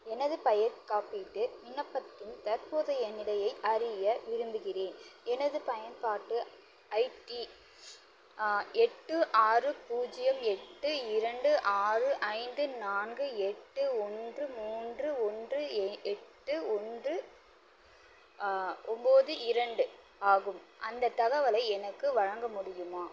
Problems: constant background noise